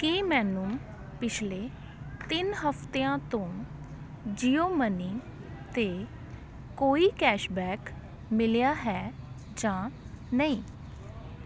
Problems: constant background noise, background conversations at intervals